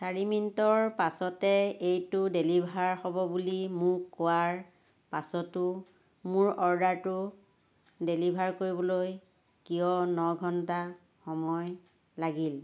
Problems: constant background noise